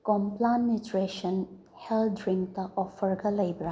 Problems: low volume